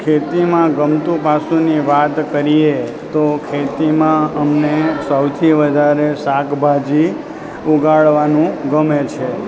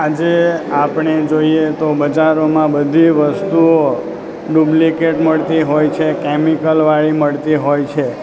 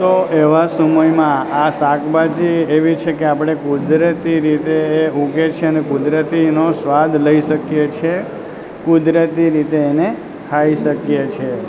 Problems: constant background noise